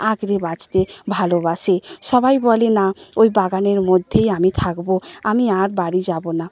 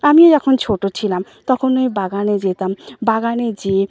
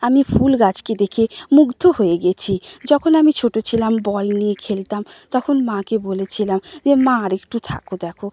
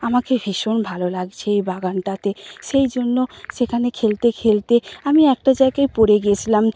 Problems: none marked